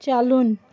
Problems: constant background noise